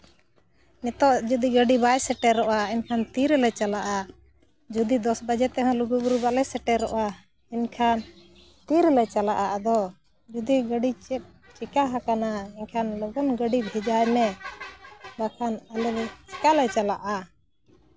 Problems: background sounds at intervals